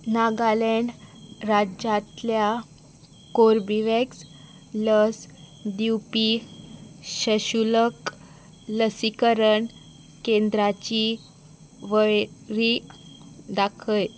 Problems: constant background noise